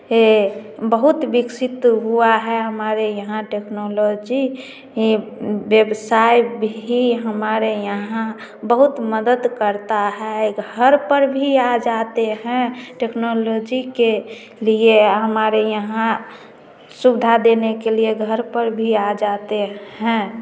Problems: constant background noise, continuous background conversations, echo